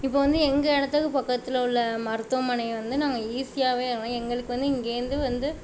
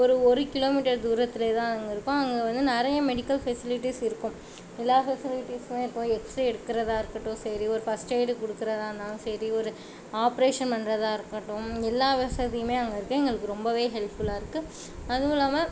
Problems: constant background noise